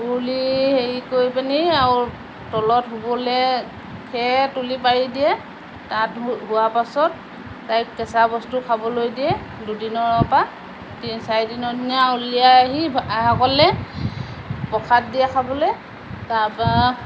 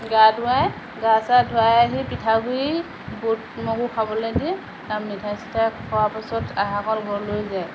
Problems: none marked